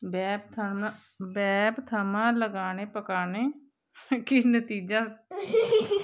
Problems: constant background noise, background conversations at intervals